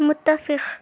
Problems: constant background noise